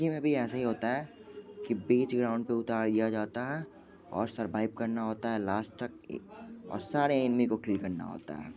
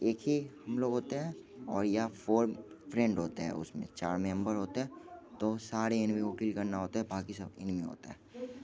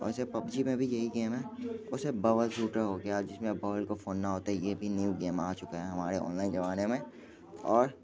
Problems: constant background noise, background conversations at intervals, low volume